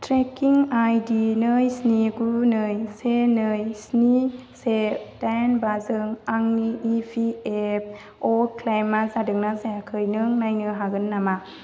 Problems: none marked